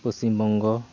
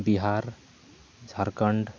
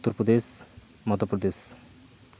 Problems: constant background noise, continuous background conversations